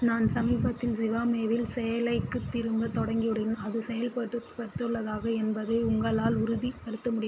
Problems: constant background noise